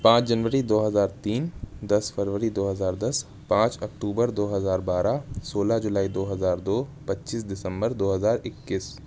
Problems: none marked